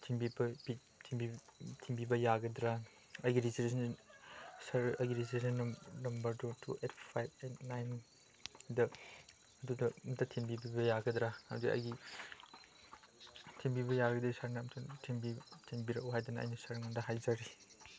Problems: background sounds at intervals